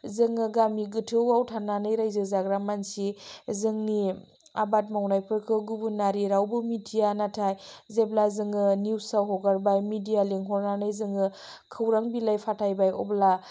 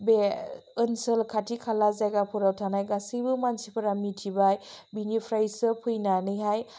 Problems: low volume